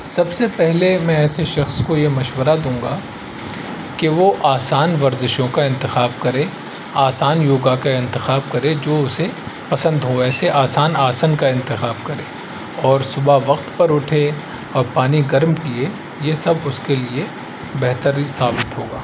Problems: constant background noise